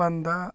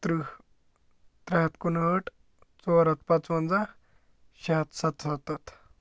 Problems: none marked